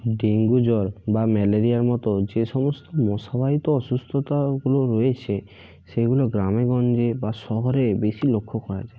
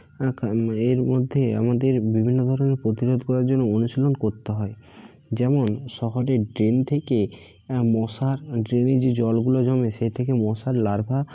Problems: constant background noise